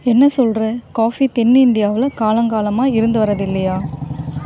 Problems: none marked